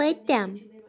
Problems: continuous background conversations